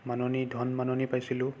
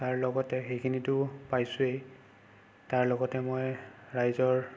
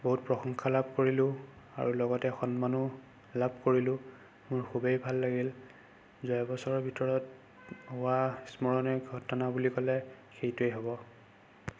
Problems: constant background noise